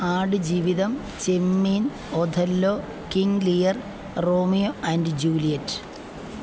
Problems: none marked